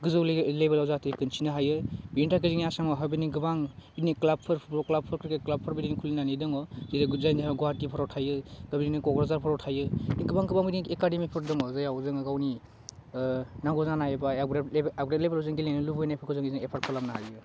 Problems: constant background noise